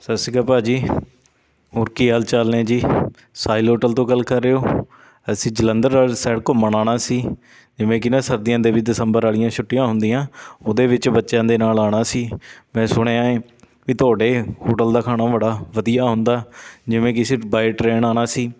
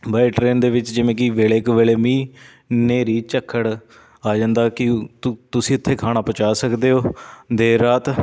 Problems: none marked